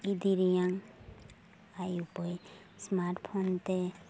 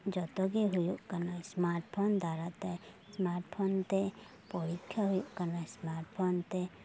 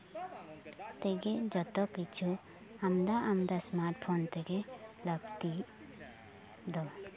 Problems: background sounds at intervals, continuous background conversations